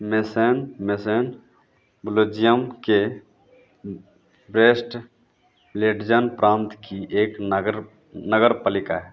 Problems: none marked